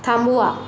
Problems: constant background noise